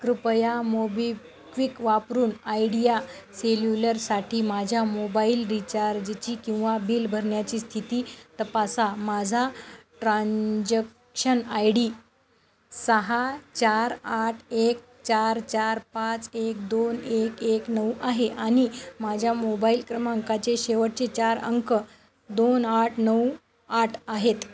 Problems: constant background noise, continuous background conversations